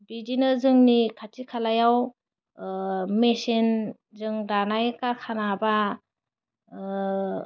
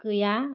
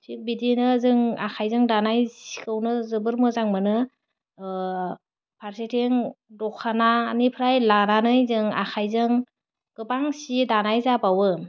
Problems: constant background noise